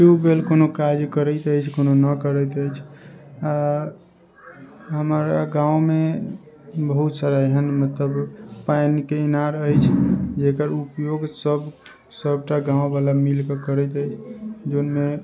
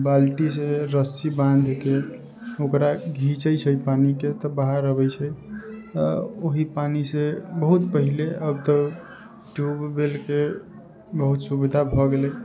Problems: background sounds at intervals